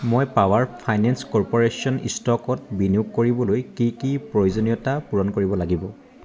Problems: background sounds at intervals, continuous background conversations